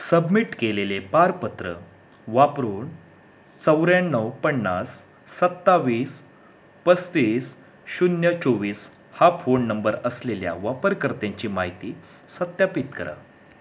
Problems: constant background noise